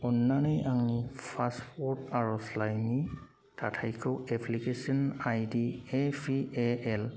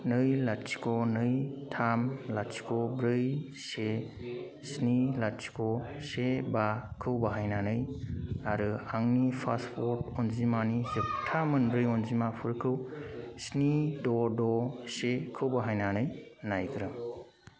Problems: constant background noise